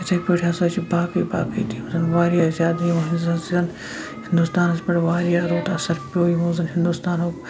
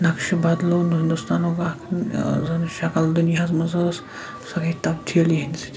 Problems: constant background noise